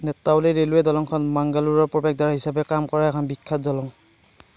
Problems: none marked